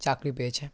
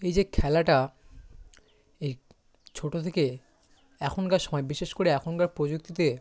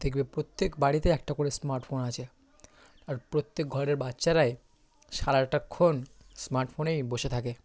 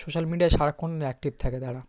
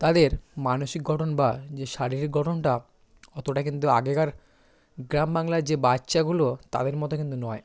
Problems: background sounds at intervals